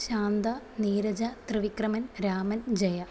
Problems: constant background noise, low volume